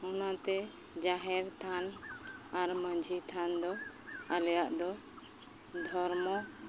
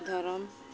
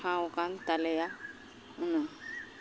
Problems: constant background noise